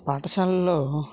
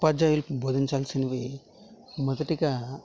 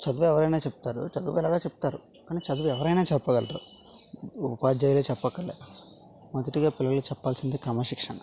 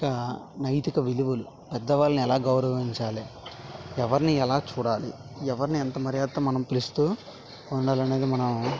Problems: constant background noise